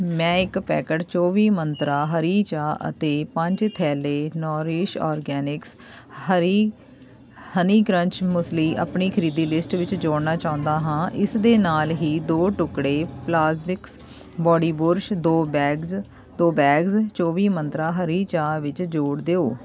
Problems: constant background noise